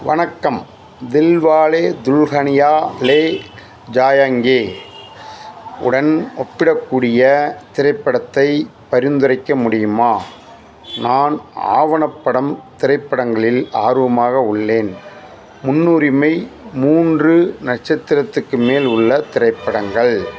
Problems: constant background noise